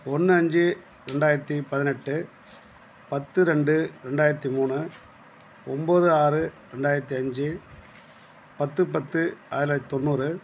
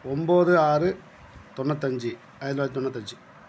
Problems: none marked